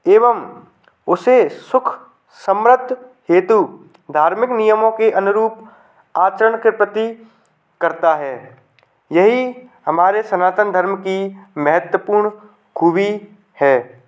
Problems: background sounds at intervals